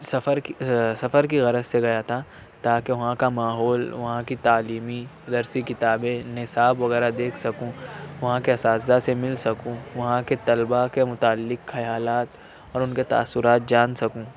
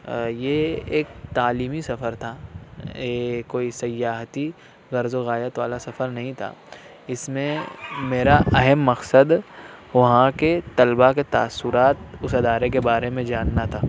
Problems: none marked